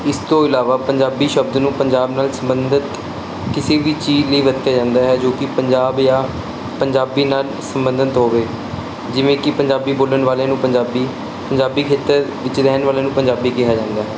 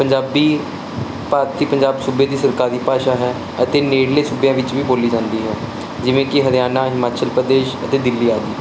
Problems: constant background noise